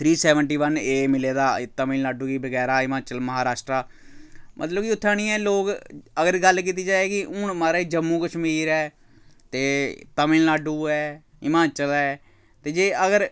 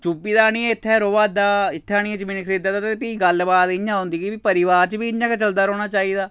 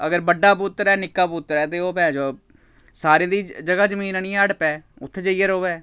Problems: none marked